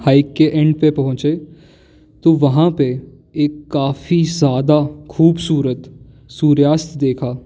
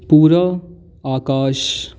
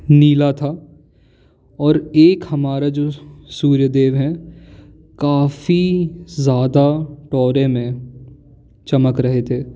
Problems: constant background noise